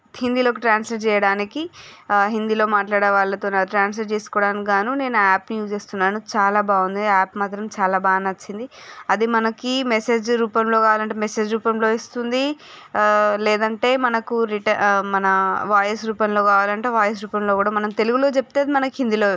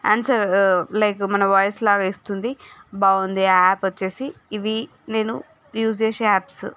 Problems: none marked